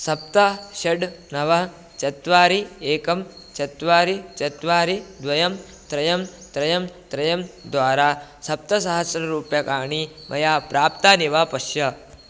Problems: constant background noise